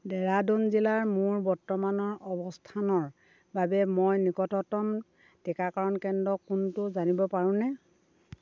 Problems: constant background noise